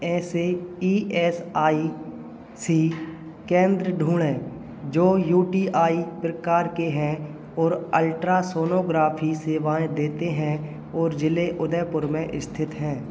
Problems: none marked